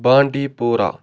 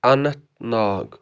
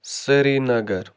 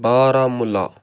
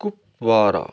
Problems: constant background noise